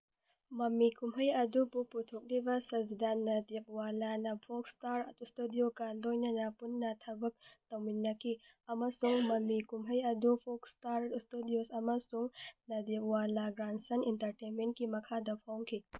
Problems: none marked